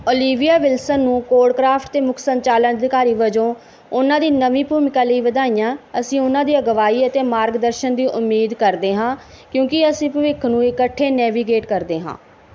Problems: background sounds at intervals